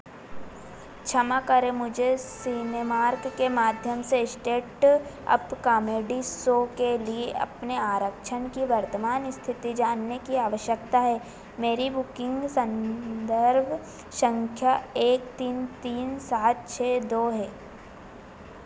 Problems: constant background noise